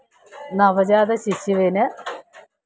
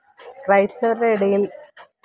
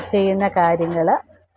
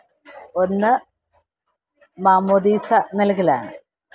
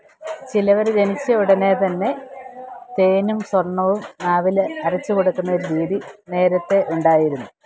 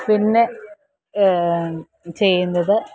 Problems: constant background noise, background conversations at intervals